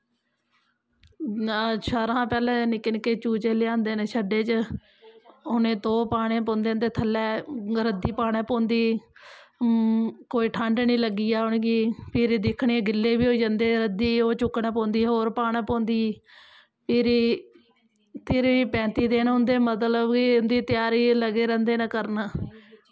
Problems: none marked